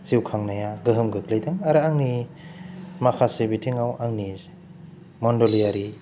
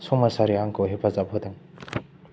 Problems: low volume